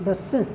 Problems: constant background noise, continuous background conversations